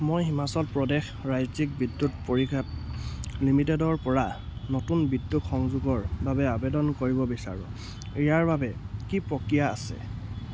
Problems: none marked